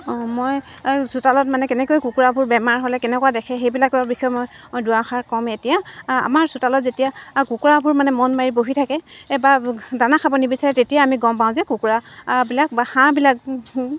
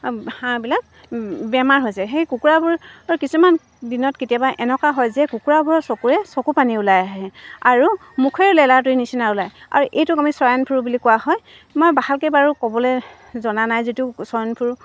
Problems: constant background noise, background conversations at intervals